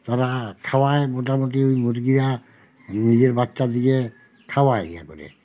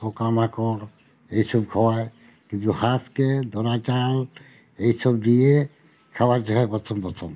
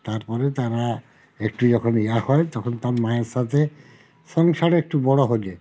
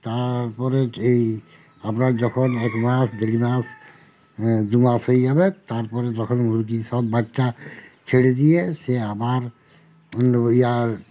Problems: constant background noise